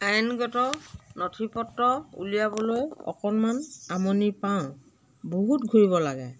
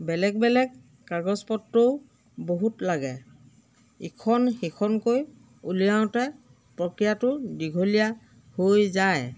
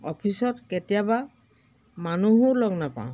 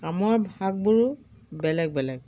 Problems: background sounds at intervals